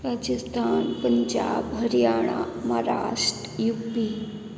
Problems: constant background noise